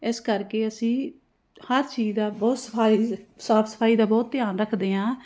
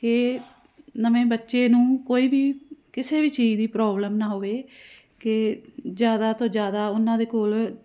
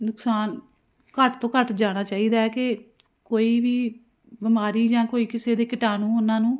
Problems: constant background noise